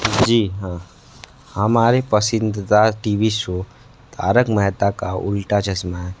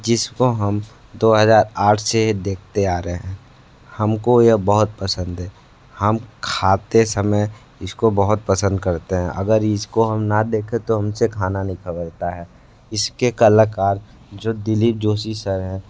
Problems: constant background noise